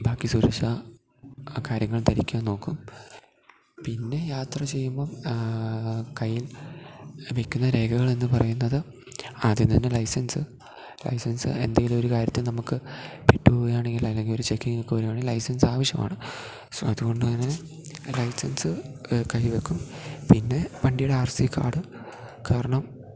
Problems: low volume